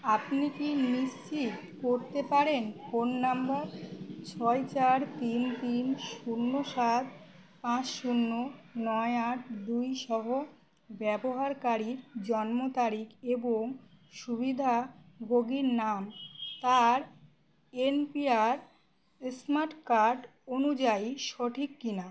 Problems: none marked